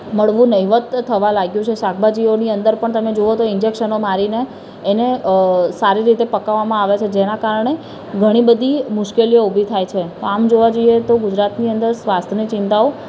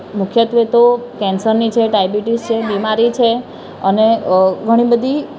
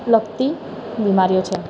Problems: constant background noise, background conversations at intervals